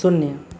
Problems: constant background noise